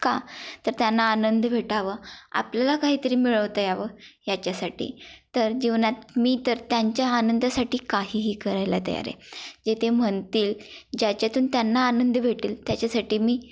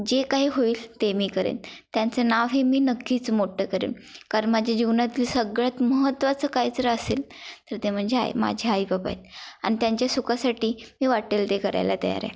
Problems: constant background noise, continuous background conversations